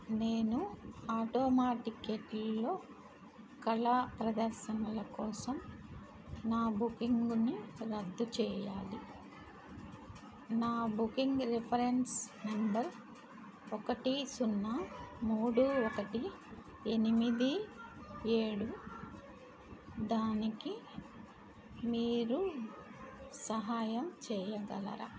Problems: constant background noise